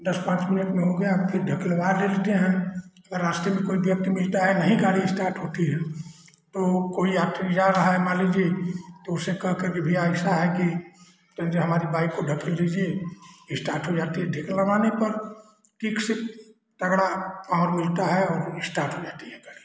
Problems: constant background noise